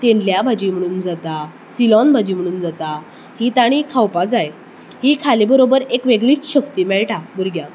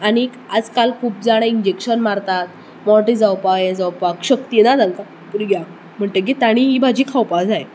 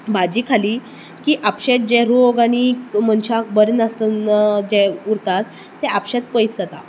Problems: constant background noise